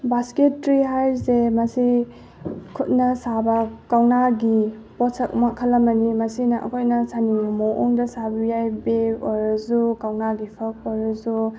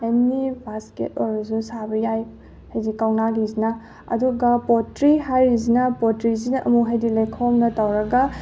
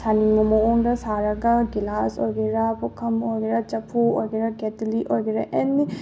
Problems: none marked